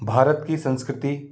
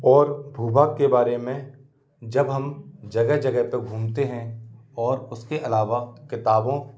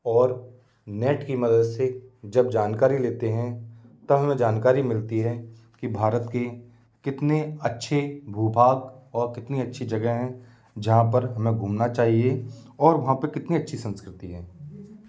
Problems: constant background noise